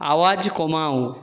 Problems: none marked